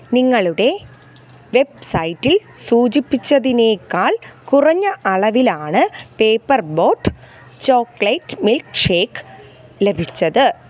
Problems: background sounds at intervals